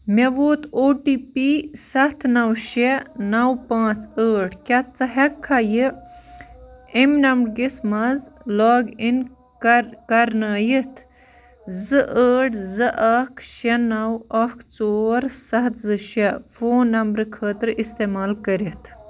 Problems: continuous background conversations